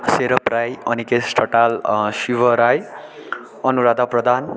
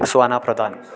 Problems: continuous background conversations